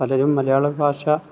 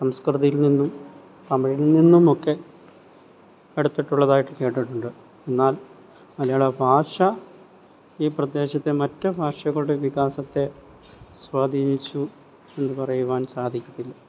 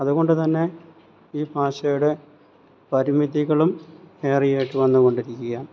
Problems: none marked